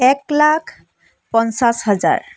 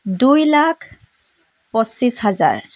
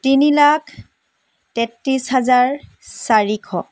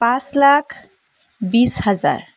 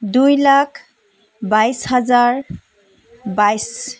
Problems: background sounds at intervals, background conversations at intervals